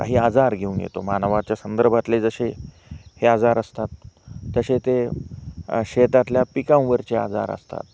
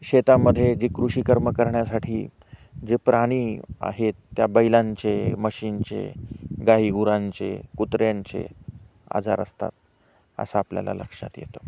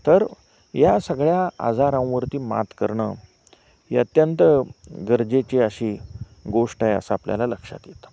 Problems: constant background noise